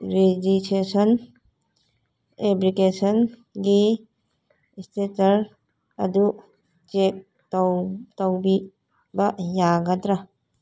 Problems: background conversations at intervals